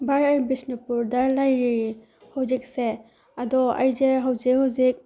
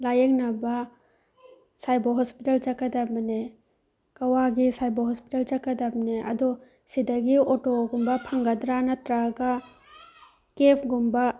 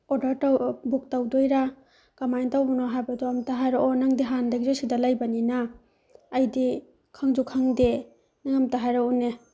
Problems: background conversations at intervals